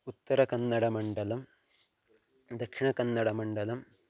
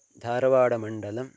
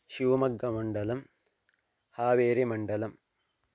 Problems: constant background noise